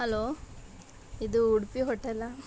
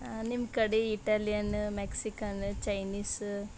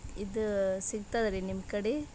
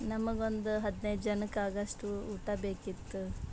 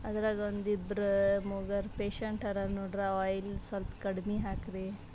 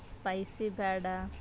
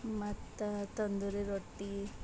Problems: background sounds at intervals